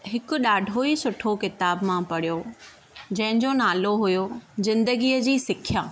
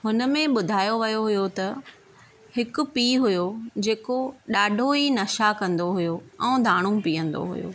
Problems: none marked